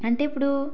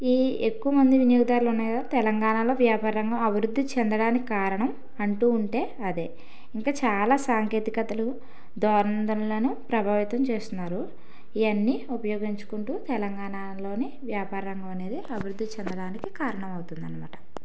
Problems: background sounds at intervals